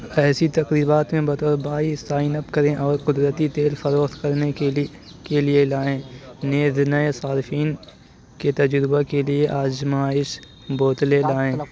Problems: constant background noise, background conversations at intervals